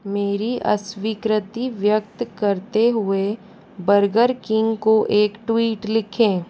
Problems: none marked